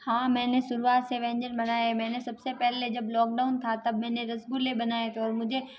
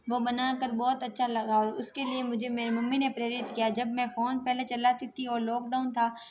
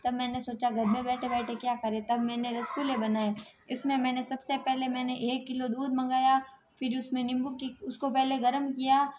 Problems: constant background noise